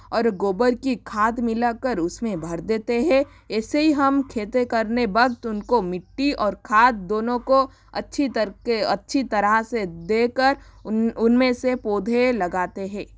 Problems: constant background noise